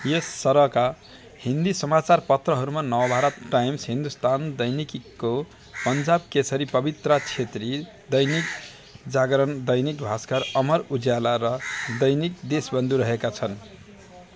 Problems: none marked